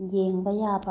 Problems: low volume